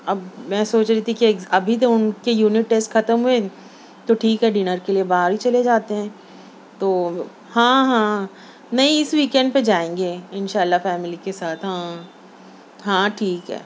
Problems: none marked